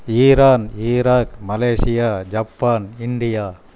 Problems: none marked